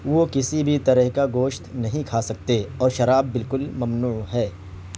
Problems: constant background noise